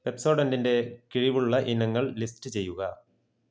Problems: low volume